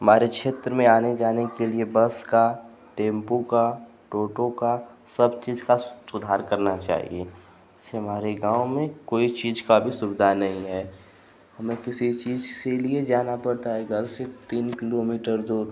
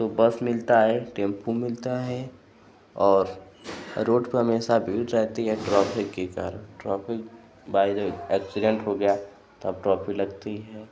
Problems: constant background noise